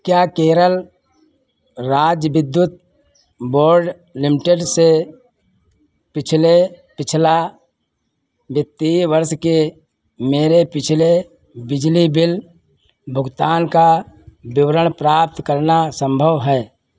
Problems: constant background noise